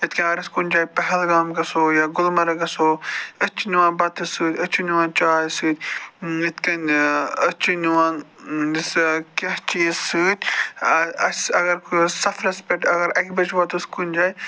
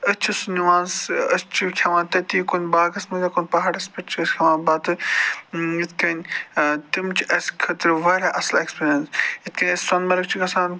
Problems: none marked